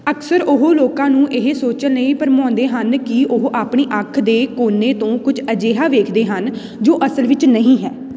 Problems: constant background noise